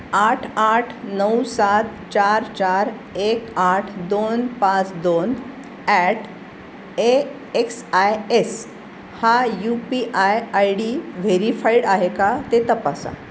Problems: constant background noise